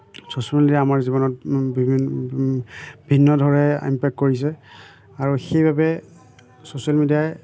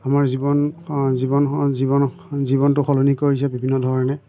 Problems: none marked